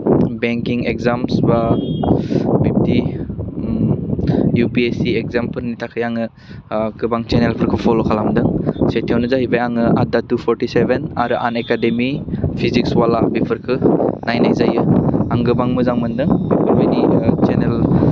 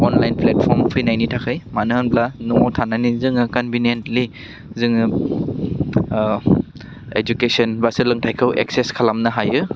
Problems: constant background noise